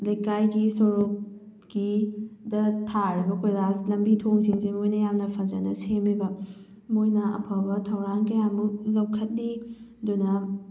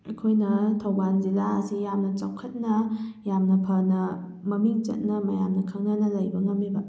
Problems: none marked